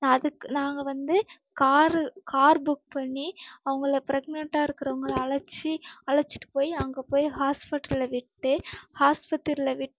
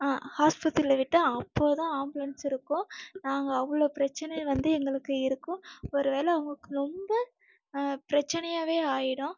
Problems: none marked